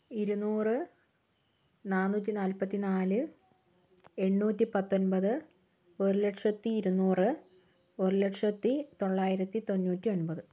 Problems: none marked